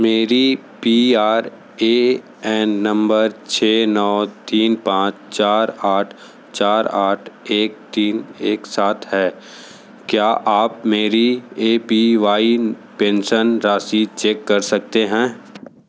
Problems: constant background noise